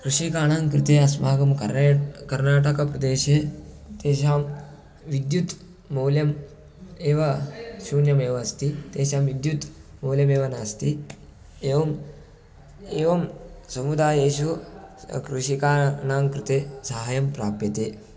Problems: constant background noise, continuous background conversations